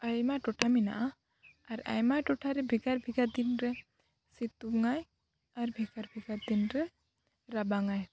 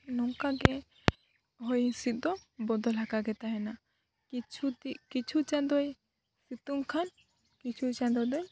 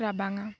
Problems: none marked